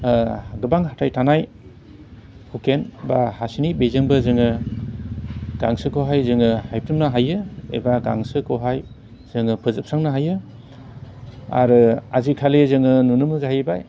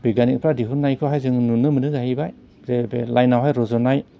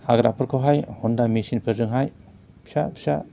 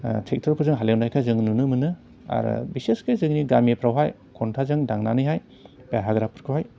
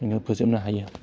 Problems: constant background noise